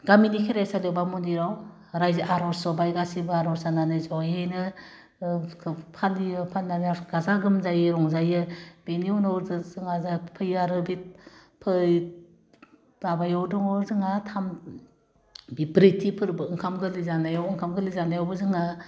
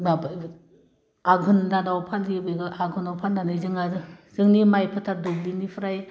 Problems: constant background noise